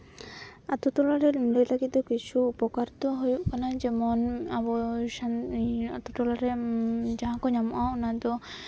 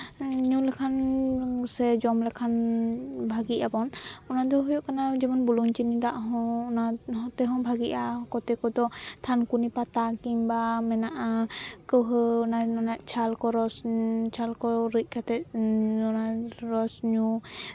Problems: background sounds at intervals